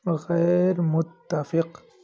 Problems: background sounds at intervals